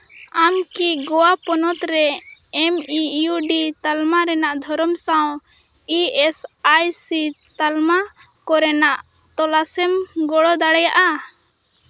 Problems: constant background noise